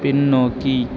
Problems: constant background noise